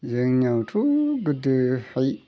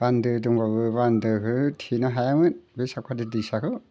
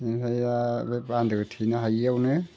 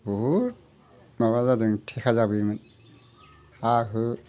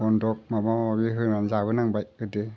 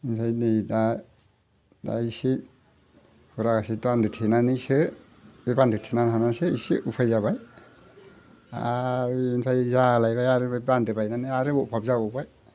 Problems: none marked